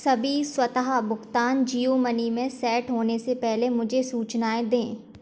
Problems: background sounds at intervals